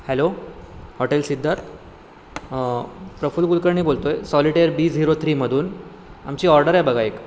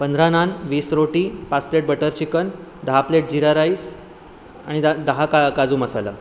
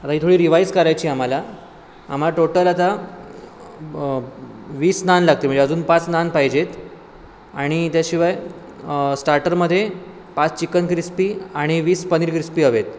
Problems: constant background noise